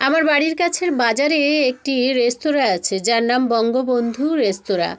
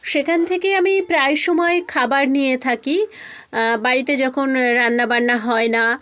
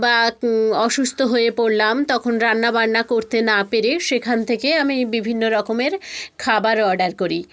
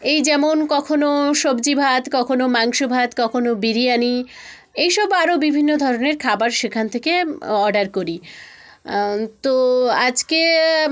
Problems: none marked